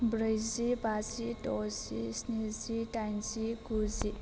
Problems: constant background noise